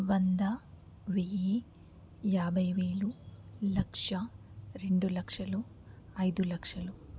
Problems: none marked